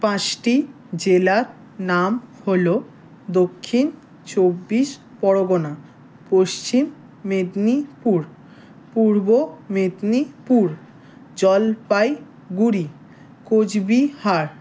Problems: background sounds at intervals